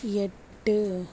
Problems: background sounds at intervals